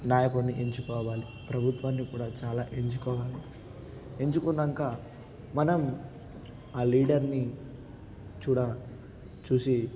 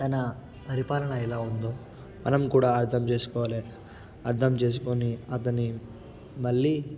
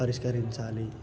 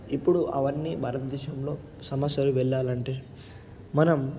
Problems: none marked